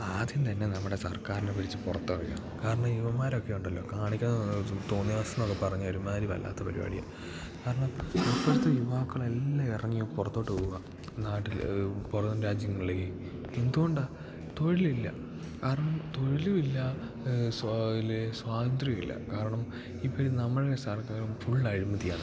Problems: background sounds at intervals